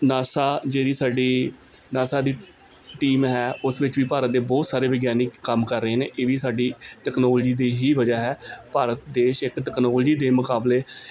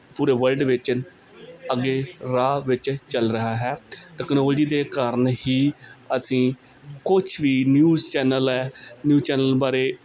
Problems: background conversations at intervals